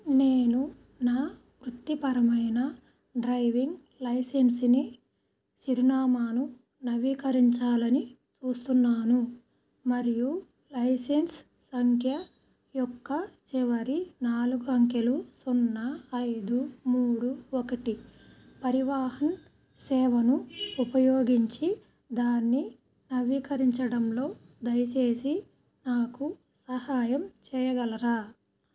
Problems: none marked